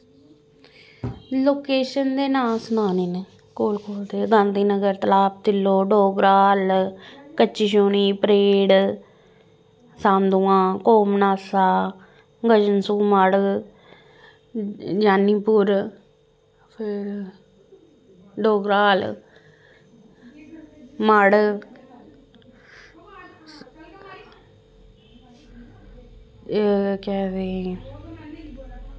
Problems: constant background noise